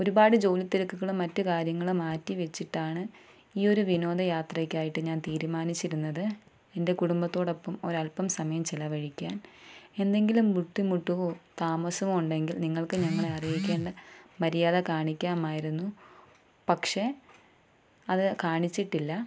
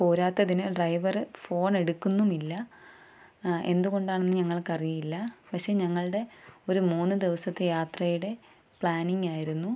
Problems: none marked